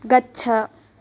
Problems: none marked